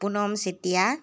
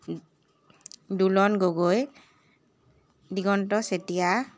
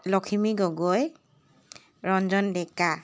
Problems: none marked